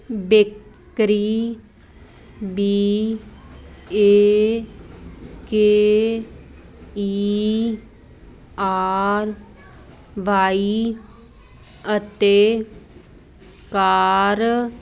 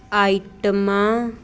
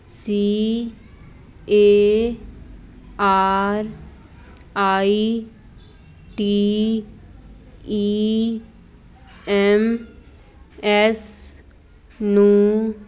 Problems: none marked